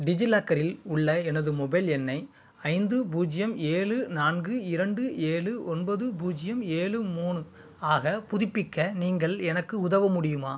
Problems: constant background noise